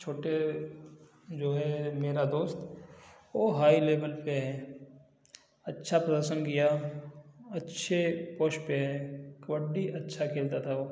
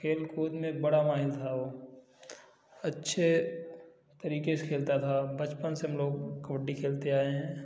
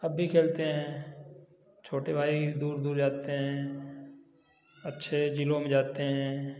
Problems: none marked